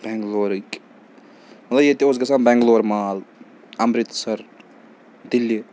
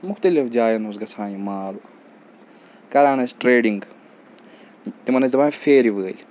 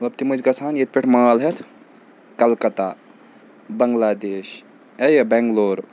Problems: none marked